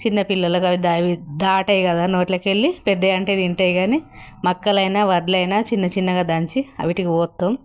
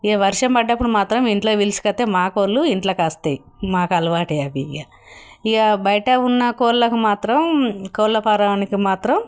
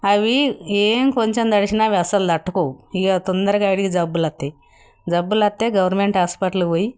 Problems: none marked